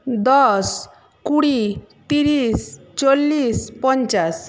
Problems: background conversations at intervals